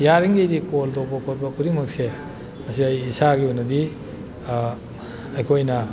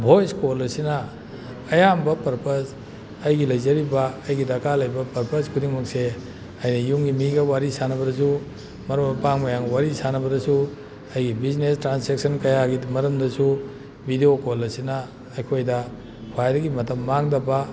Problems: background sounds at intervals